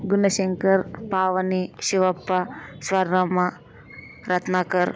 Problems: constant background noise, background conversations at intervals